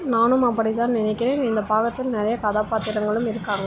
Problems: constant background noise